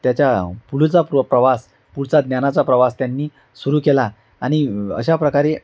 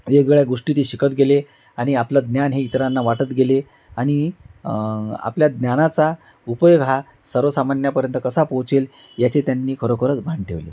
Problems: background sounds at intervals